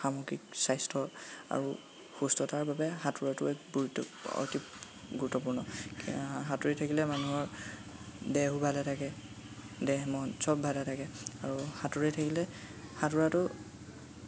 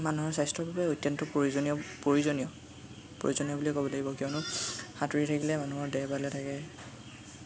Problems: constant background noise, background conversations at intervals